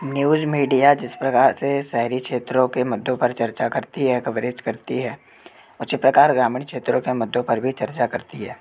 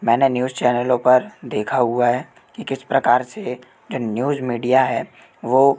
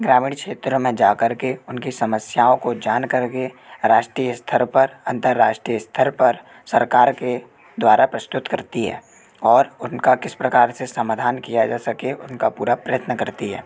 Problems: constant background noise